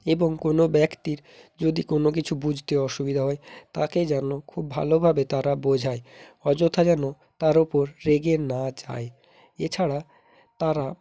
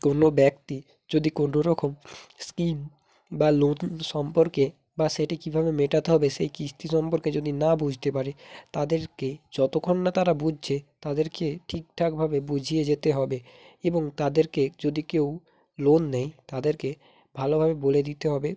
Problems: none marked